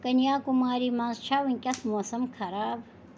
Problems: none marked